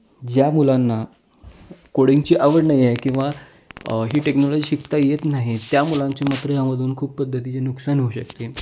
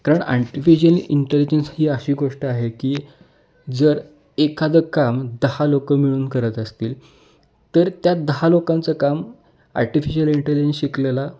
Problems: background sounds at intervals